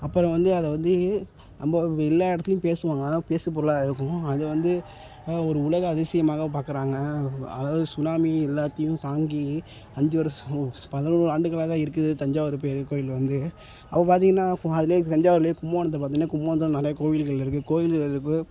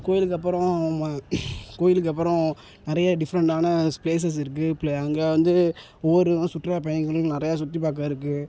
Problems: none marked